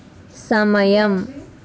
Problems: constant background noise, background conversations at intervals